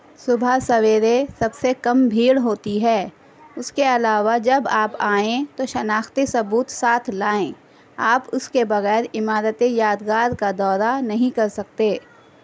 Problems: constant background noise